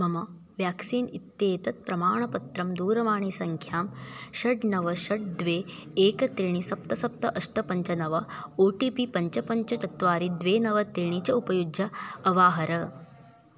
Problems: none marked